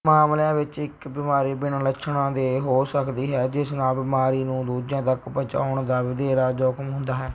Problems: background sounds at intervals